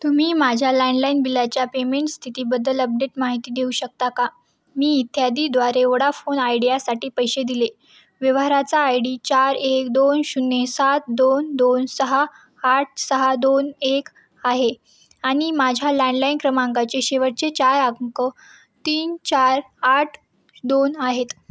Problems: background sounds at intervals